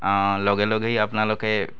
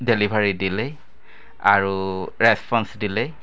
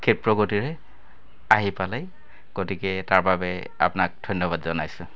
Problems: constant background noise, continuous background conversations